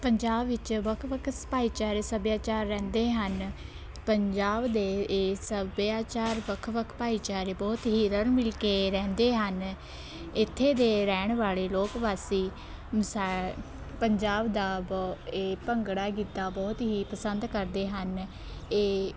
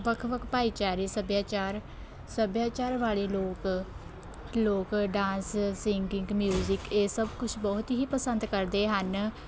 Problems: constant background noise, background conversations at intervals